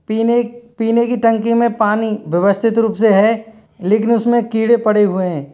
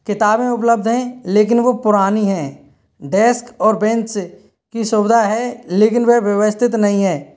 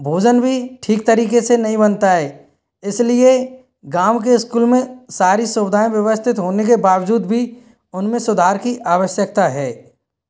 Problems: none marked